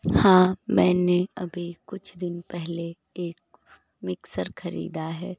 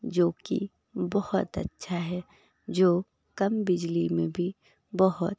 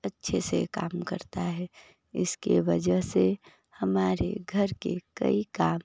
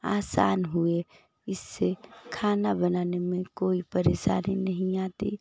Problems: none marked